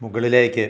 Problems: low volume